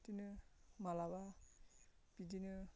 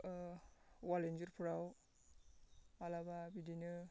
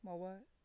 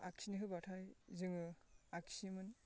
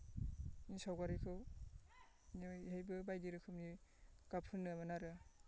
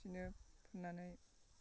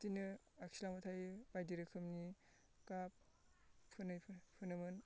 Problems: constant background noise